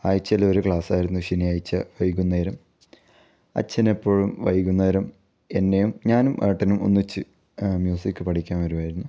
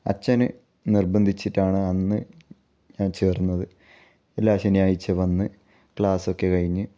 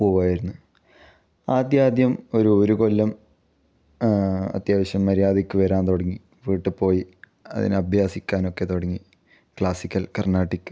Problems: none marked